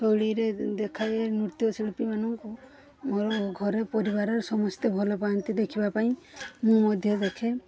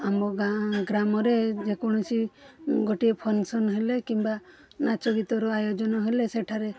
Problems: background sounds at intervals